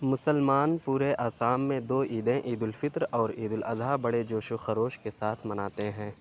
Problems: none marked